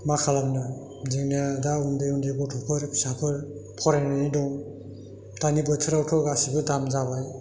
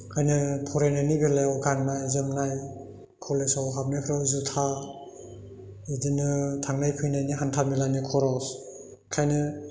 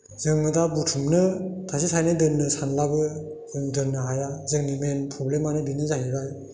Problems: constant background noise